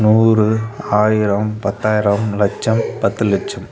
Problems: constant background noise